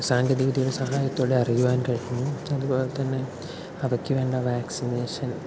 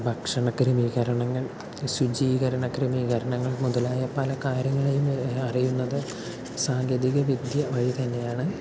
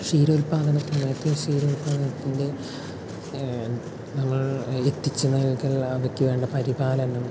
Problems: constant background noise, low volume